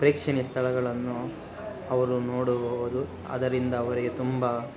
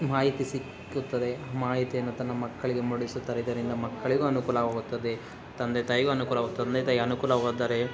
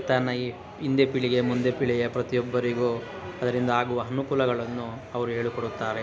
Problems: background sounds at intervals